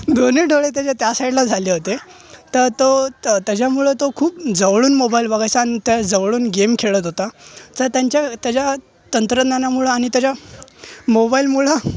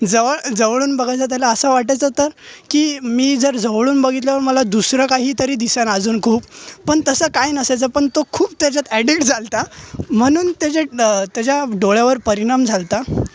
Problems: none marked